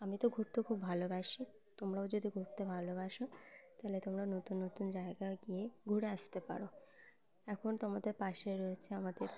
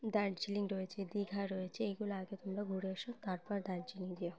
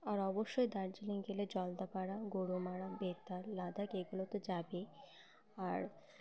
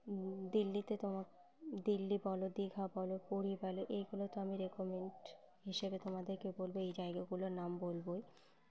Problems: constant background noise, background conversations at intervals